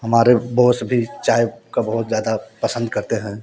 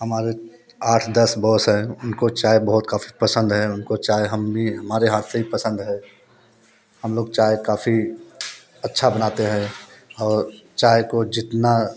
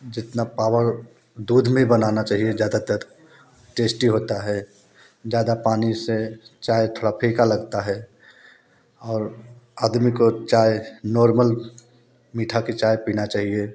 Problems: background sounds at intervals